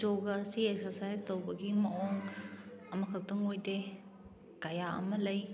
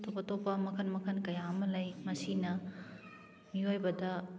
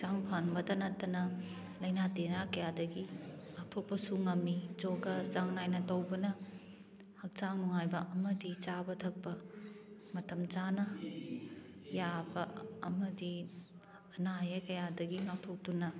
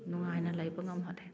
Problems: background sounds at intervals, background conversations at intervals